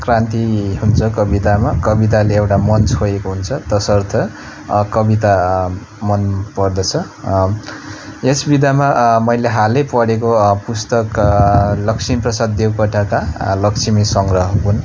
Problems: constant background noise